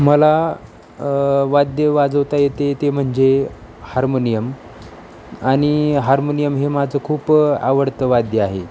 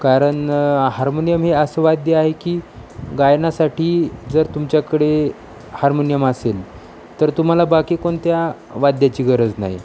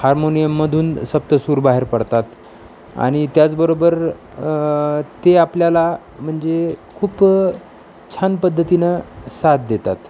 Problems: constant background noise, background conversations at intervals